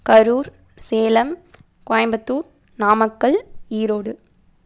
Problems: none marked